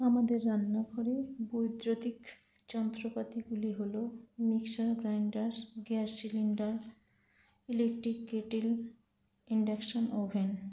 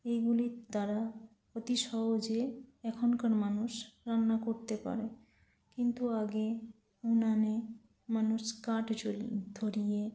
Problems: constant background noise